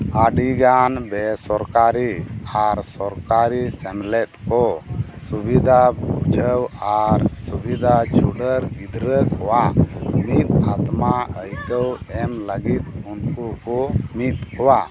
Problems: constant background noise